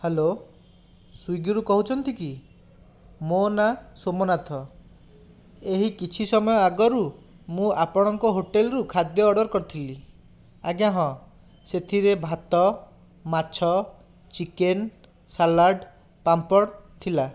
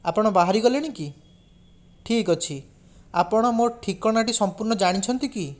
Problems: none marked